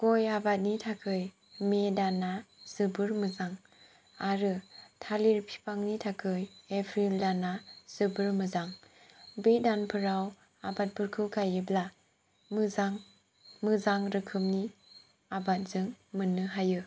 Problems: none marked